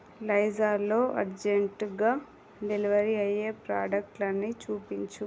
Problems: none marked